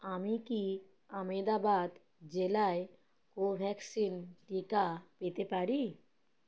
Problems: none marked